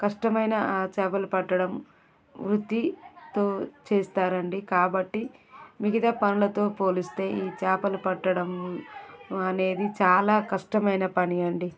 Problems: continuous background conversations